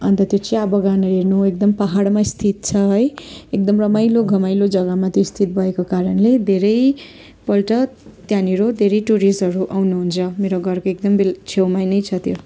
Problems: constant background noise, continuous background conversations